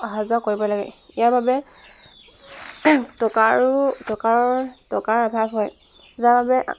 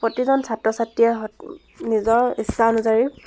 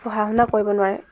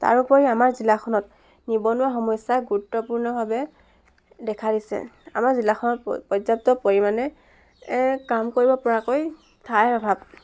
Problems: constant background noise, background conversations at intervals